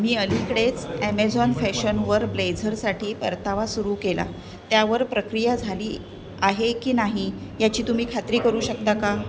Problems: constant background noise, background conversations at intervals